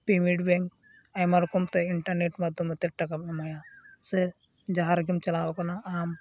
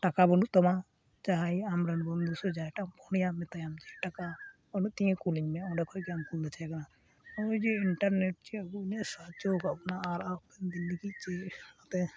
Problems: none marked